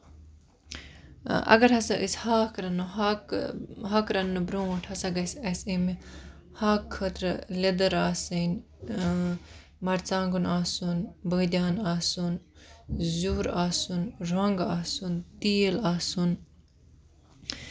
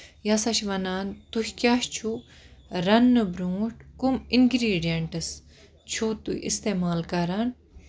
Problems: constant background noise